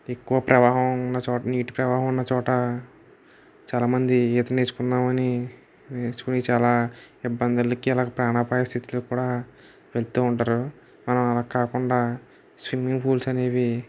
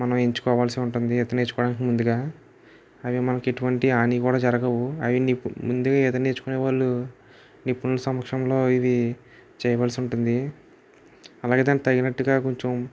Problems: background sounds at intervals